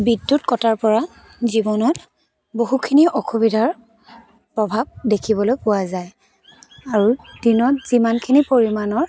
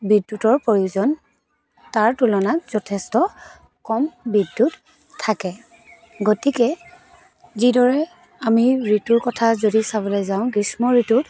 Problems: constant background noise, continuous background conversations